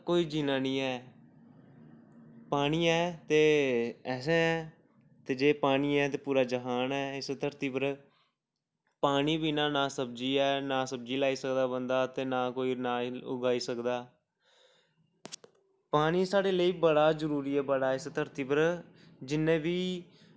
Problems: background sounds at intervals